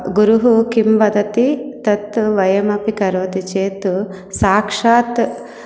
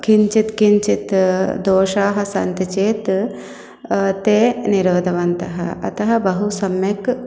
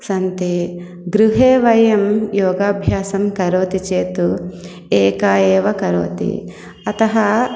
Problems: none marked